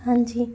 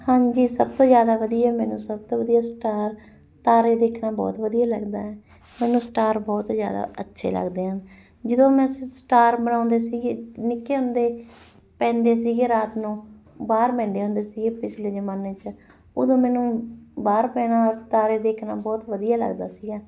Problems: none marked